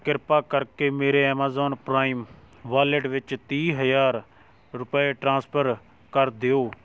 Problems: none marked